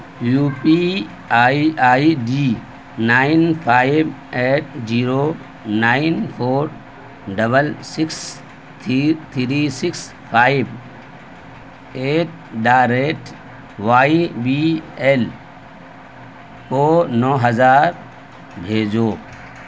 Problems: constant background noise